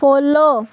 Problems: background sounds at intervals